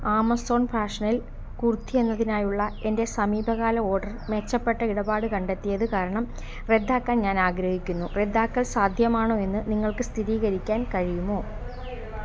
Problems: constant background noise